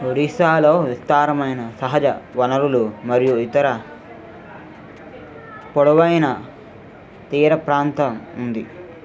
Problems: constant background noise, continuous background conversations